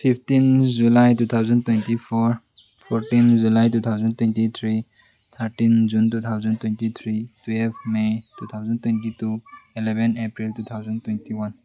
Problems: background sounds at intervals